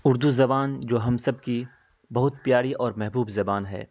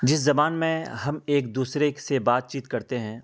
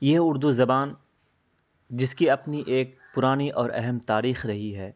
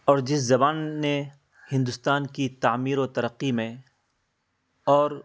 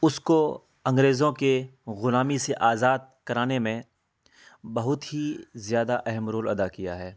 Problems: none marked